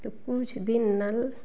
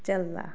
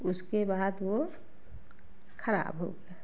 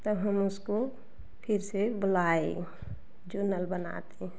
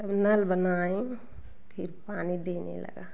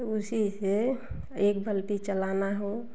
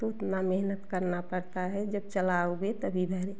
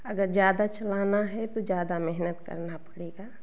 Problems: none marked